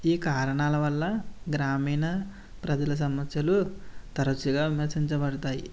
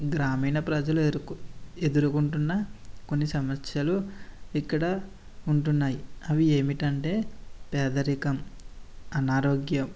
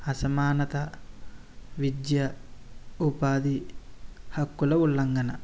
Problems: none marked